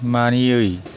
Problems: none marked